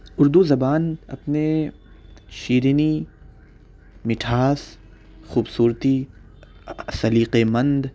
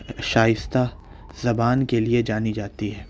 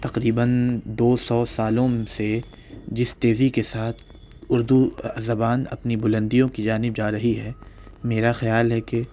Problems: background sounds at intervals